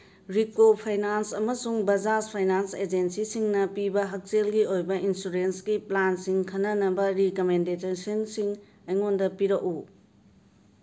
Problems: background sounds at intervals